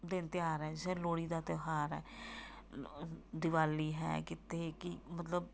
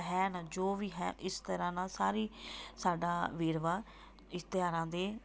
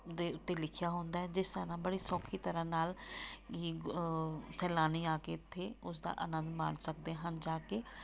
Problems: background sounds at intervals